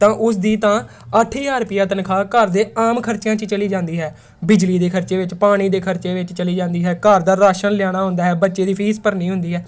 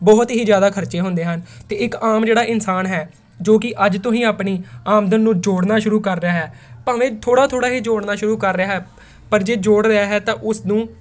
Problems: background sounds at intervals